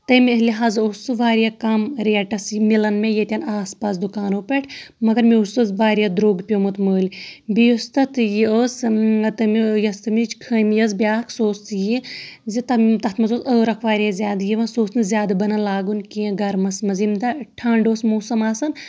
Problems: background sounds at intervals